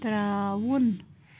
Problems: none marked